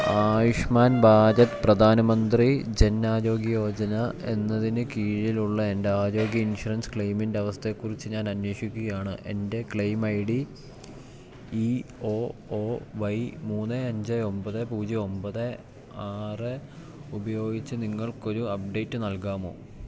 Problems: none marked